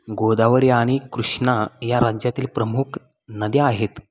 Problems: none marked